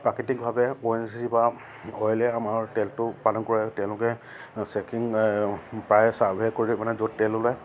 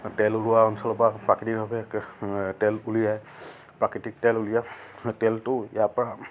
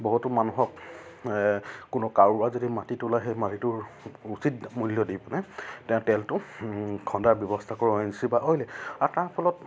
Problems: none marked